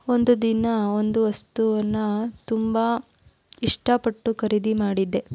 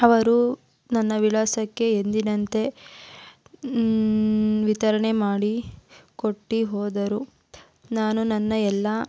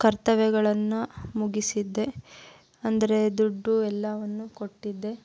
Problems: none marked